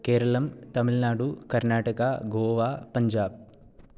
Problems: none marked